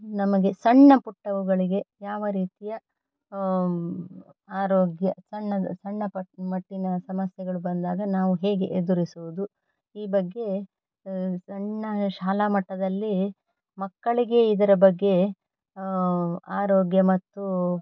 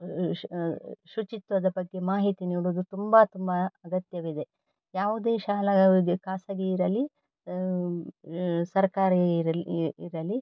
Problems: none marked